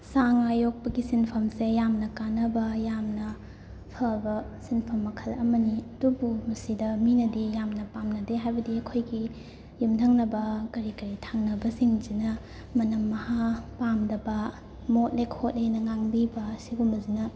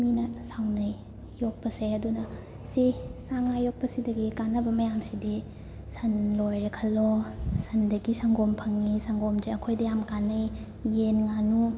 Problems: constant background noise